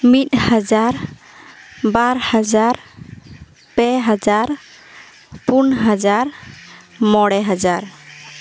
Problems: background sounds at intervals